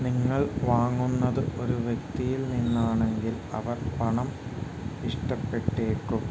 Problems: none marked